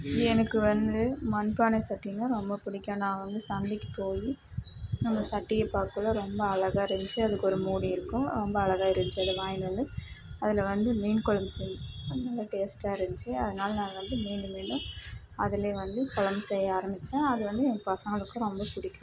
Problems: constant background noise, low volume